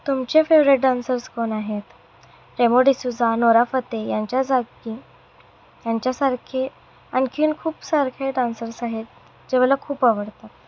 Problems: none marked